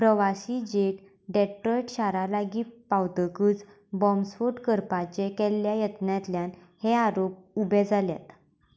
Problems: background conversations at intervals